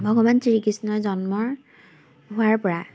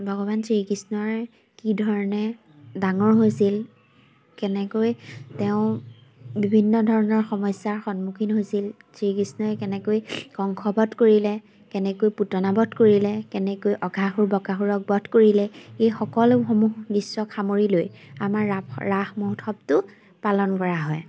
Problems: none marked